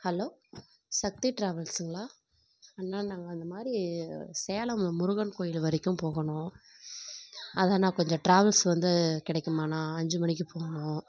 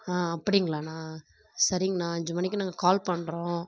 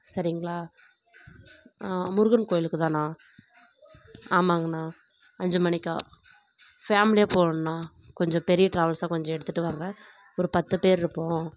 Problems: background sounds at intervals